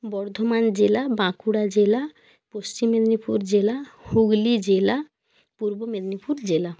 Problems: none marked